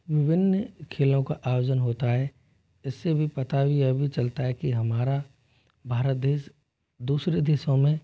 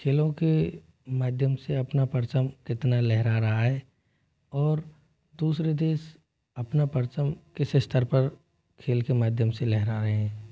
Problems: constant background noise, low volume